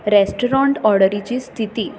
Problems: continuous background conversations